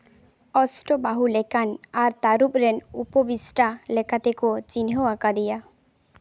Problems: none marked